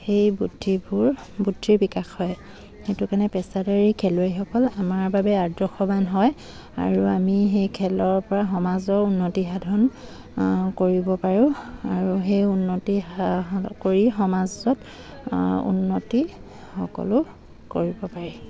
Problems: none marked